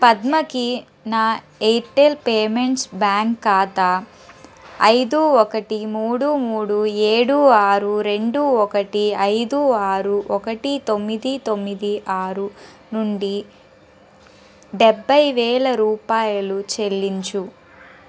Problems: background conversations at intervals